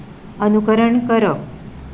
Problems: constant background noise